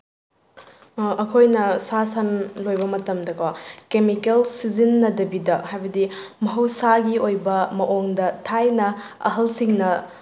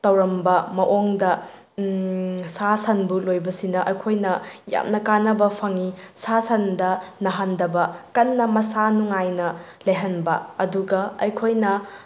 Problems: none marked